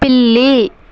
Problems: none marked